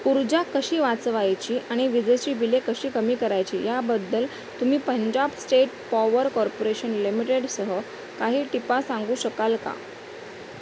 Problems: constant background noise